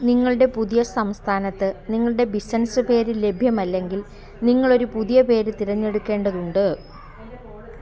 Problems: none marked